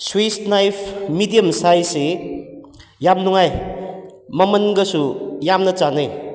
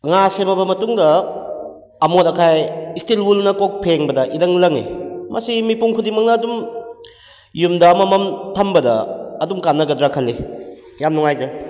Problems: background sounds at intervals, echo